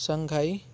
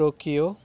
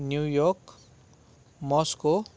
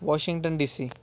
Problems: none marked